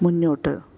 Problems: none marked